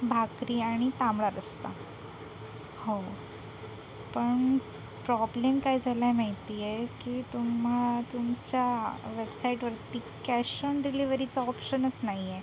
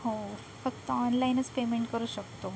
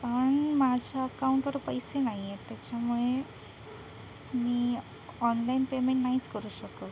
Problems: constant background noise